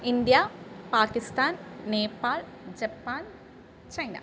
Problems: background sounds at intervals, low volume